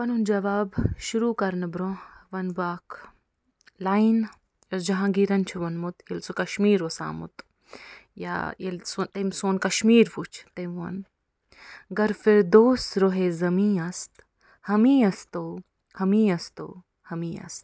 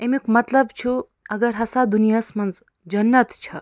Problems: none marked